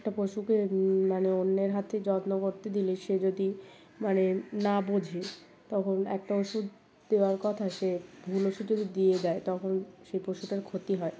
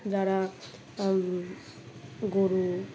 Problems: constant background noise, background conversations at intervals